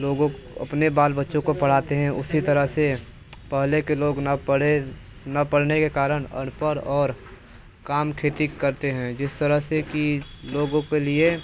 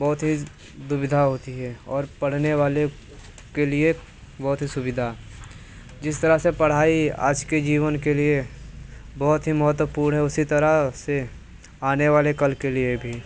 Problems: constant background noise, background conversations at intervals